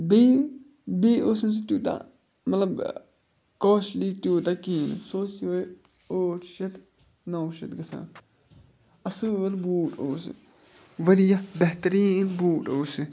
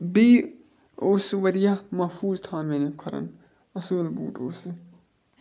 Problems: none marked